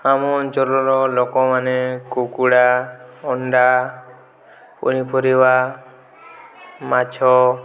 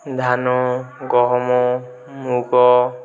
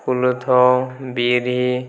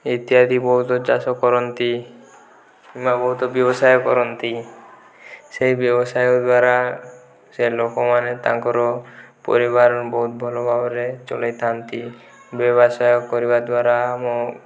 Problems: background conversations at intervals